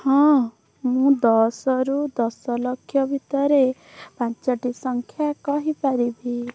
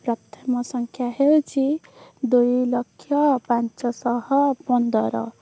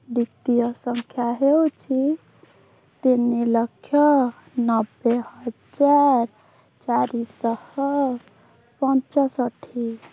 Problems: background sounds at intervals